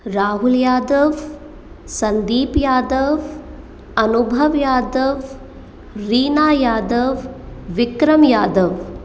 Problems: echo